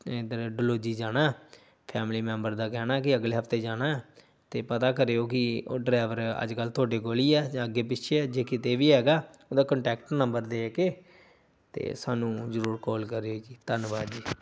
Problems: none marked